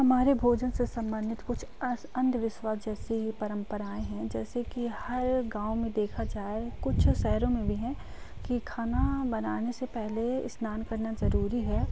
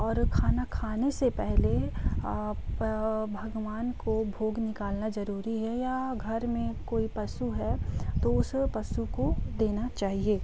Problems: constant background noise